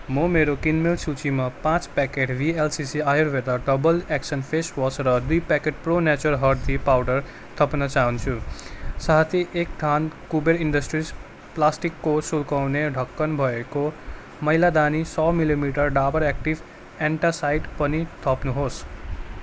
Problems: none marked